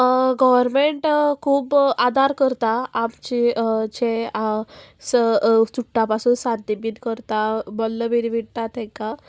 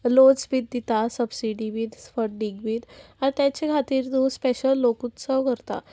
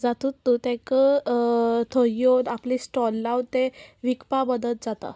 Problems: constant background noise